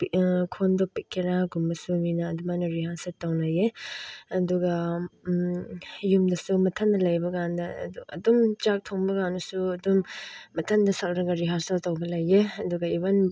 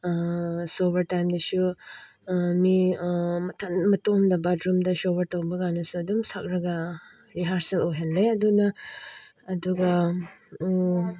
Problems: none marked